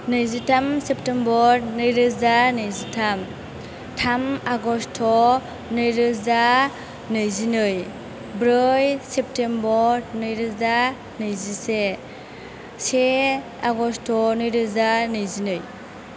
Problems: constant background noise